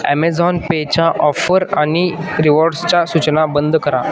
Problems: constant background noise, continuous background conversations